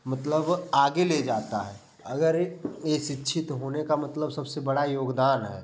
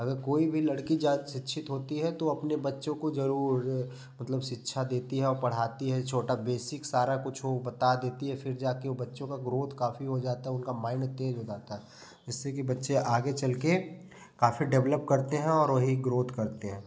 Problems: background sounds at intervals, background conversations at intervals